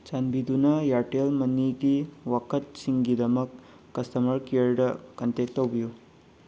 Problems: constant background noise